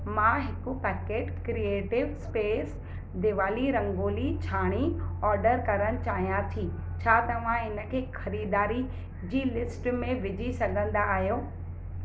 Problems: background sounds at intervals